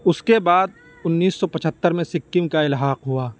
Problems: constant background noise